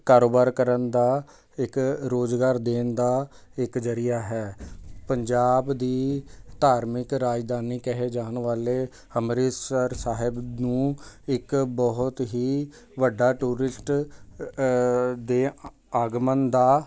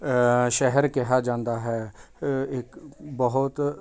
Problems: constant background noise